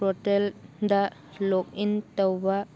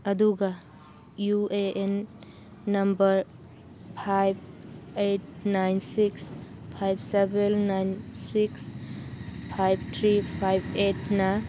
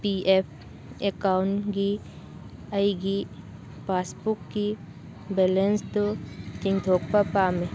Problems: background sounds at intervals